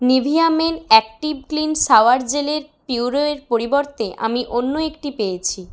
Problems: background sounds at intervals